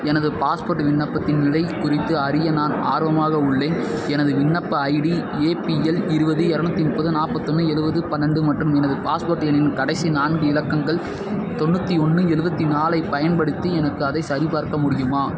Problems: constant background noise